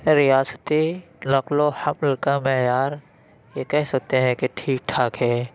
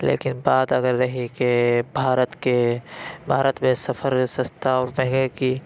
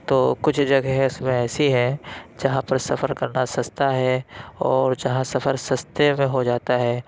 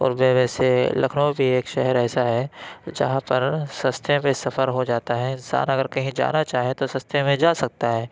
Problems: constant background noise